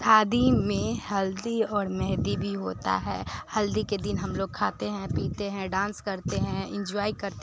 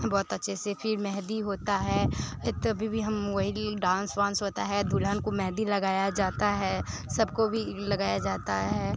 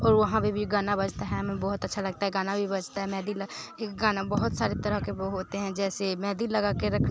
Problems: constant background noise, background conversations at intervals